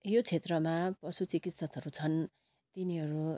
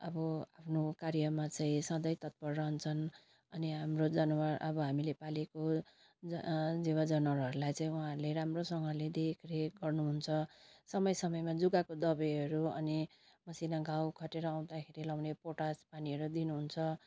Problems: constant background noise